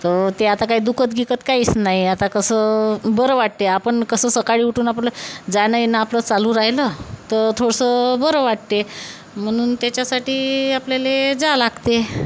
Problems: none marked